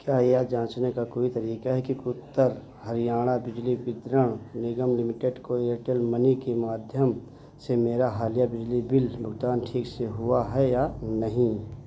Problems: constant background noise